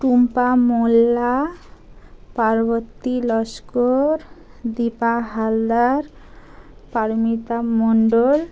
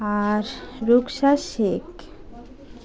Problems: constant background noise, continuous background conversations